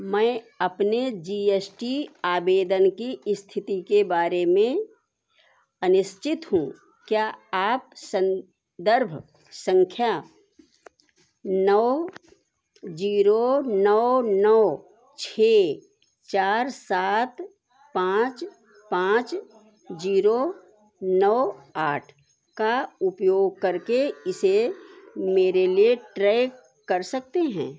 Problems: none marked